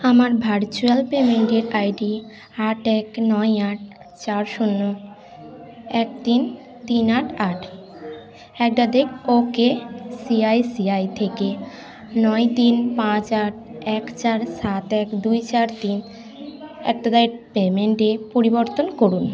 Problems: continuous background conversations